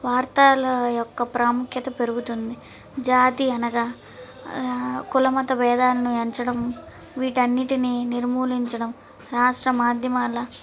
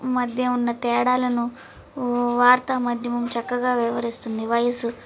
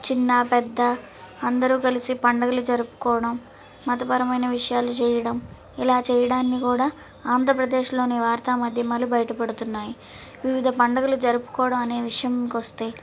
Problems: none marked